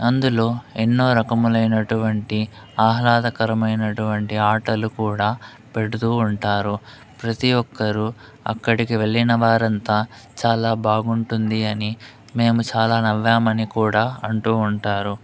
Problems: constant background noise